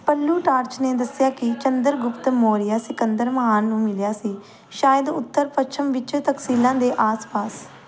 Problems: background sounds at intervals